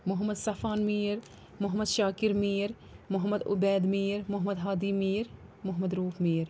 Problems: none marked